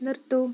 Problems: background sounds at intervals, low volume